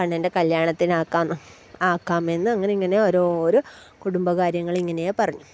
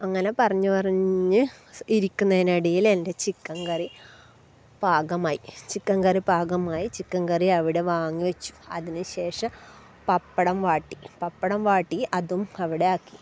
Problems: background sounds at intervals